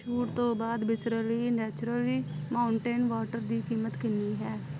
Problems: none marked